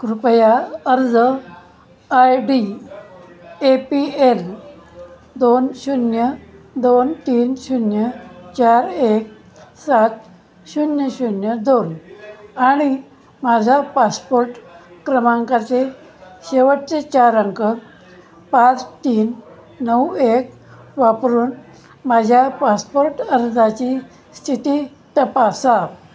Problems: constant background noise, background conversations at intervals